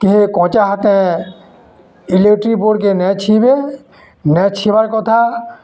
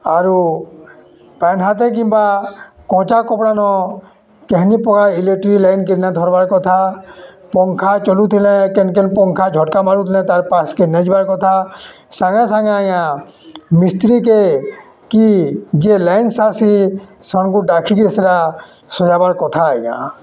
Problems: constant background noise, continuous background conversations